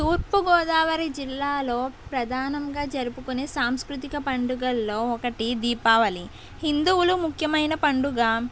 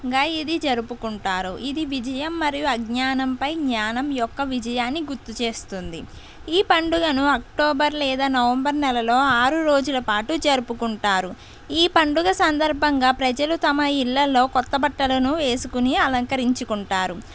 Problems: constant background noise